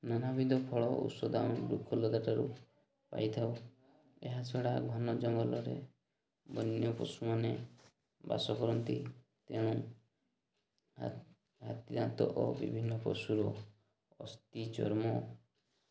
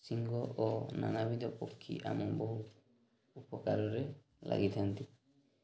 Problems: none marked